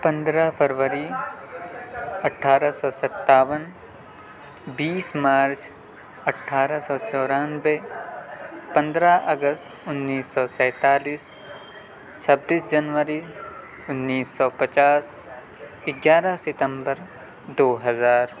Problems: constant background noise, background conversations at intervals